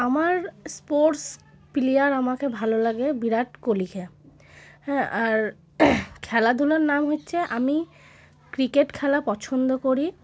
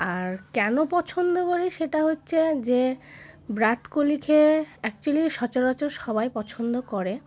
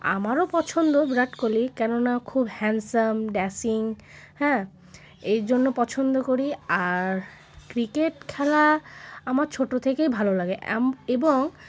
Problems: background sounds at intervals